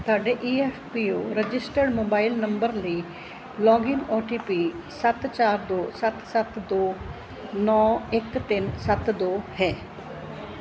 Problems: constant background noise